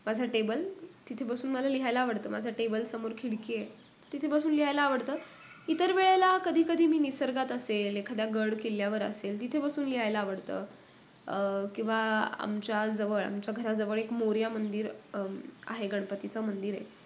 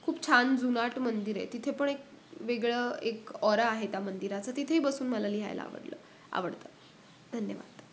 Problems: none marked